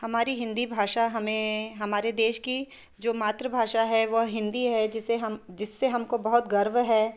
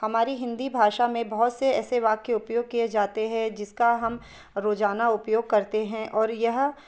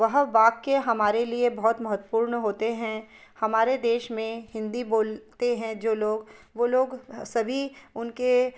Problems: background sounds at intervals